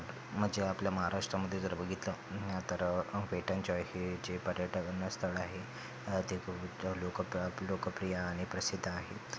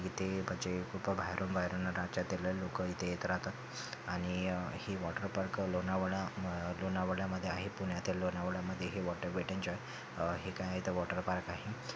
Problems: constant background noise